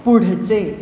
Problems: background sounds at intervals